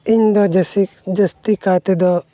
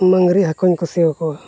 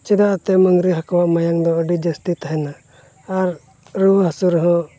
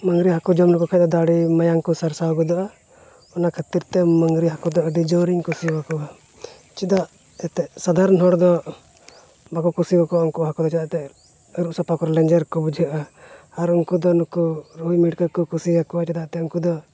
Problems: none marked